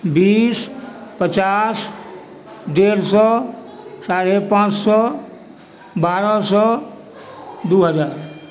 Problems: background conversations at intervals